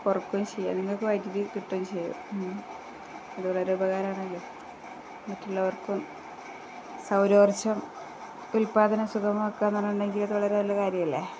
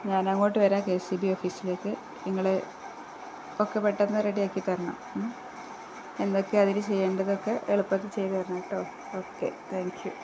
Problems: constant background noise, low volume